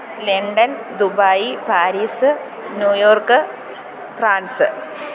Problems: none marked